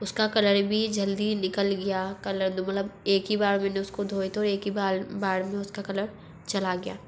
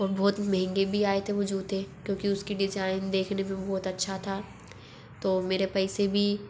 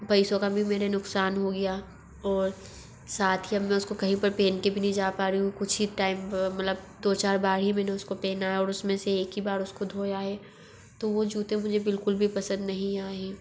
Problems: none marked